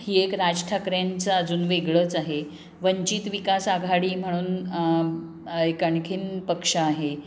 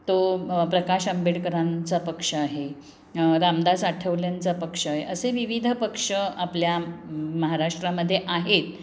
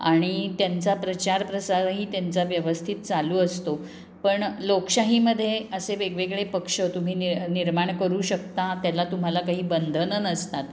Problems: constant background noise